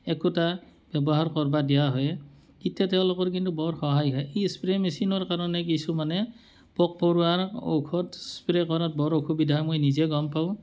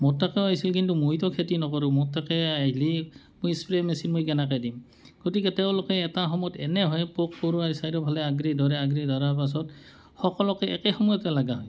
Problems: none marked